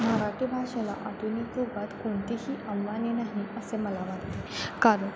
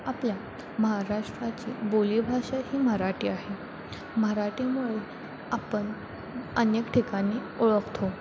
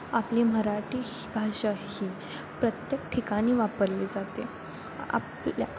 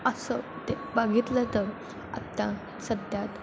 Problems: constant background noise